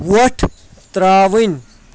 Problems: constant background noise